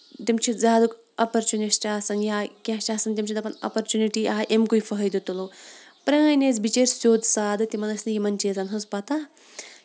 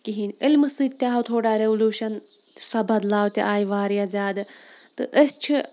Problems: none marked